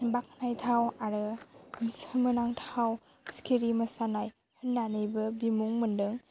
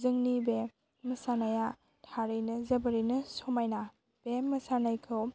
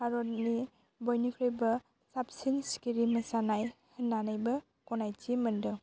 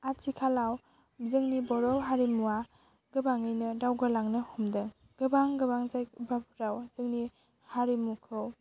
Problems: constant background noise